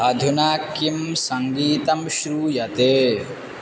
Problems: constant background noise